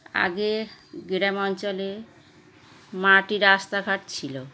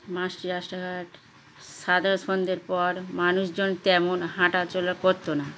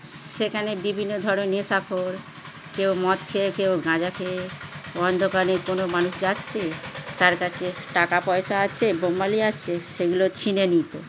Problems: constant background noise